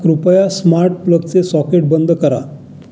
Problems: continuous background conversations